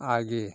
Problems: none marked